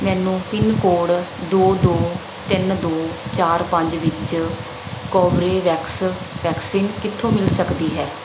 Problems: none marked